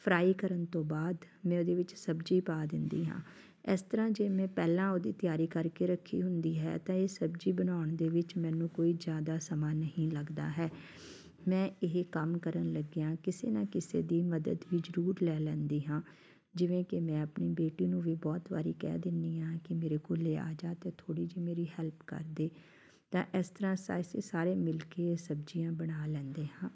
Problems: background sounds at intervals, background conversations at intervals